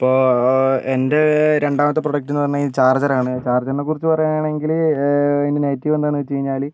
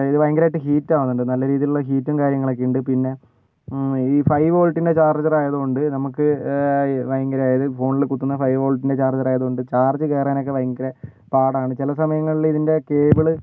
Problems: none marked